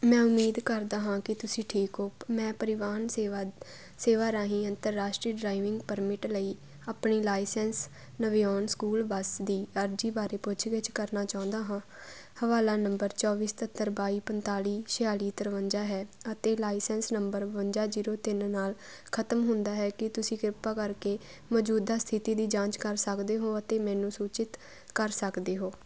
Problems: constant background noise